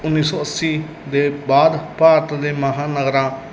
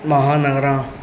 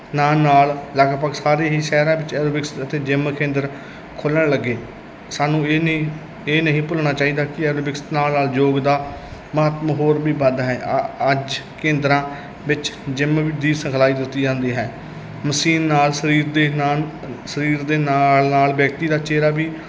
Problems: constant background noise